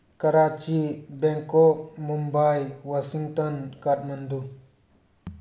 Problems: background conversations at intervals